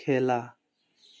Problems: none marked